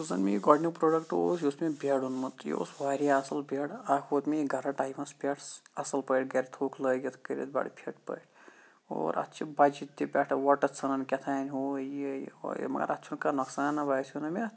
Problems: background sounds at intervals